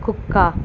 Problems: constant background noise